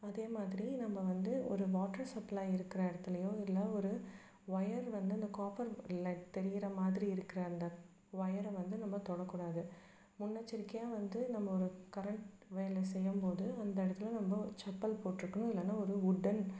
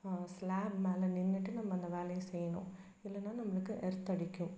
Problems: none marked